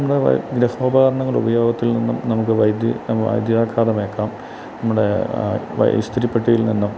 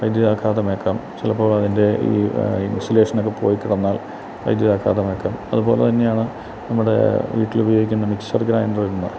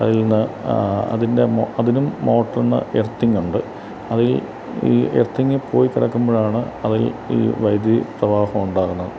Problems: constant background noise